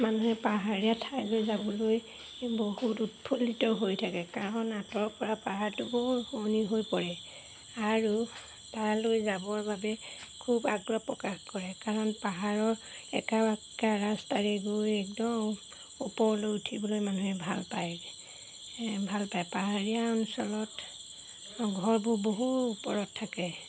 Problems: background sounds at intervals